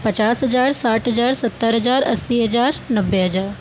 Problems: constant background noise